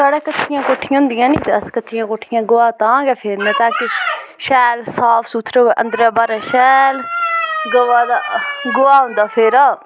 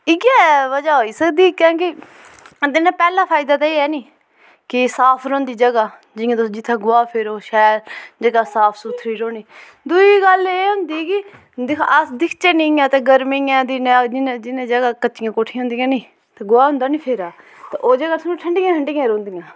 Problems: background sounds at intervals